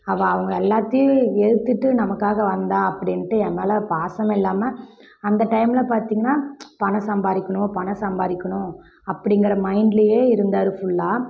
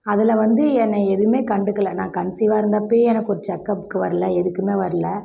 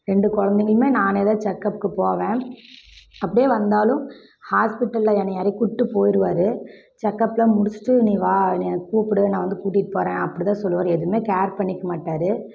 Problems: none marked